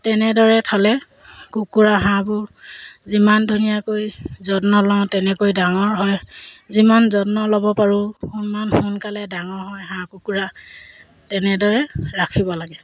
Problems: background sounds at intervals